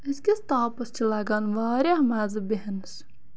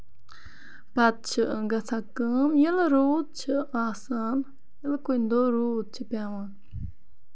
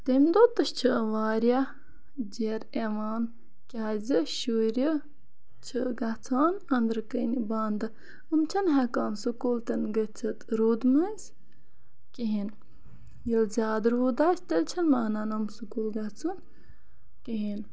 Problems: constant background noise